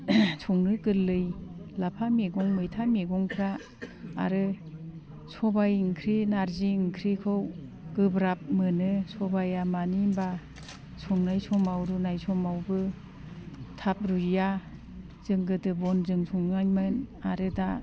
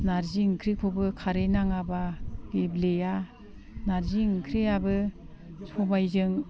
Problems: constant background noise